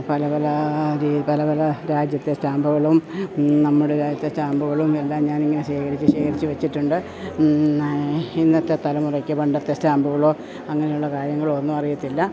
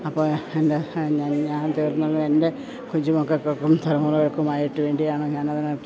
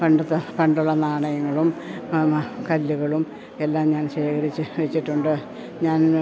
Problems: background sounds at intervals, low volume